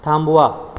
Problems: background sounds at intervals